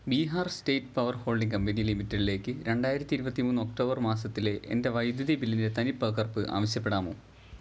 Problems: none marked